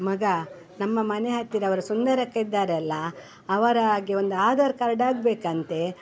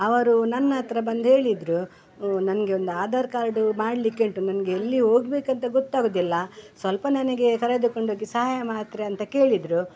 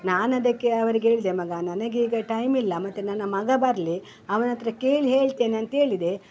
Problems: none marked